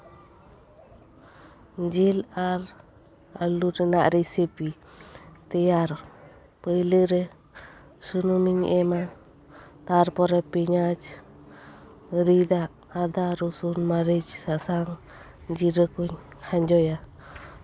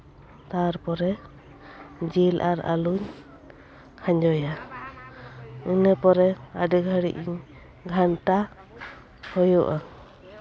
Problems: constant background noise, background conversations at intervals